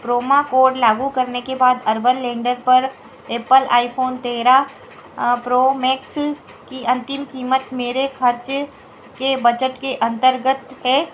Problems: none marked